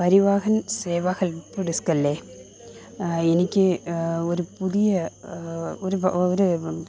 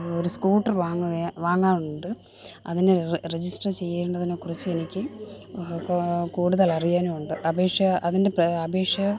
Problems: constant background noise